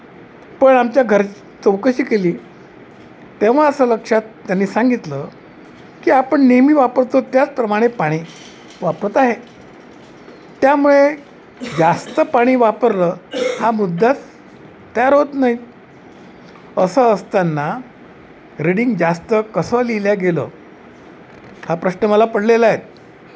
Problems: none marked